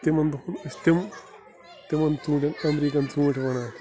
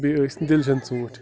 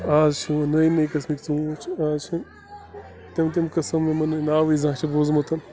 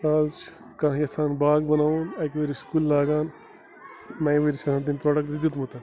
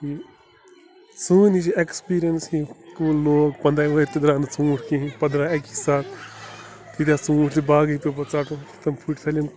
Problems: constant background noise